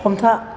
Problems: constant background noise